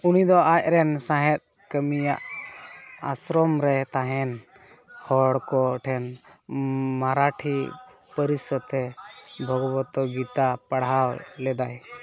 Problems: constant background noise